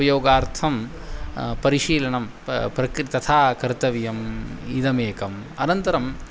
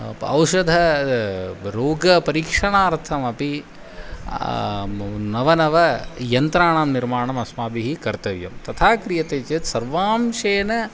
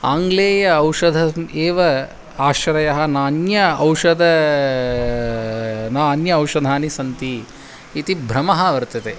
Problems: constant background noise